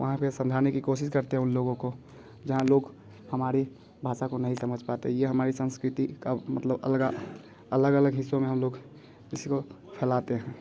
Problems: constant background noise